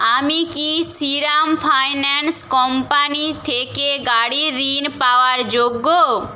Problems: constant background noise